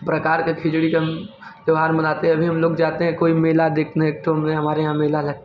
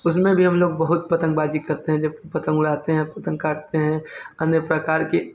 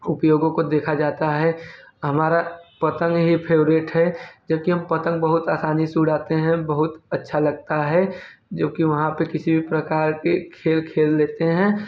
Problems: none marked